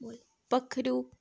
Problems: background conversations at intervals